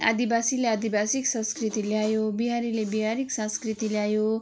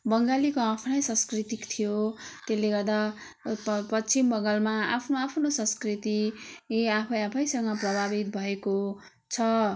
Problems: none marked